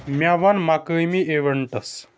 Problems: background sounds at intervals